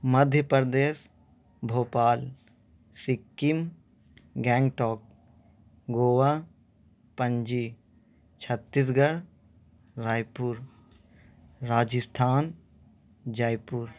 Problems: constant background noise